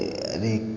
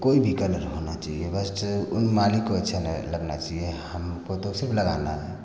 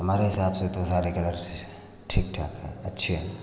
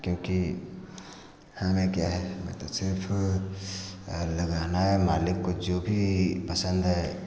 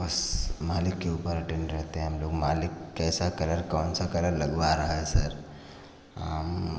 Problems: constant background noise